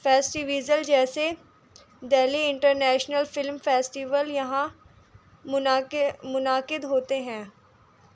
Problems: constant background noise